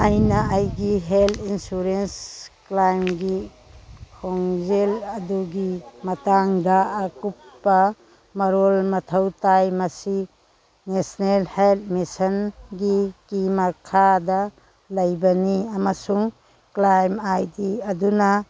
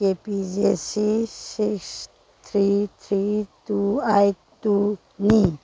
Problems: background sounds at intervals, background conversations at intervals